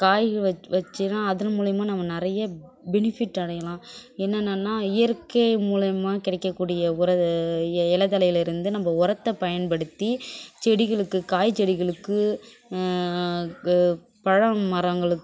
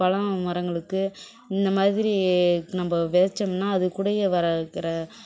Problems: background sounds at intervals, background conversations at intervals